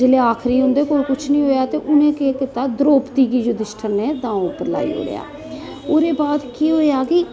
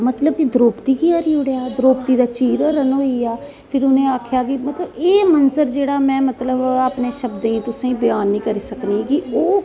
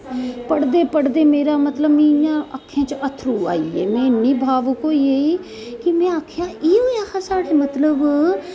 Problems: none marked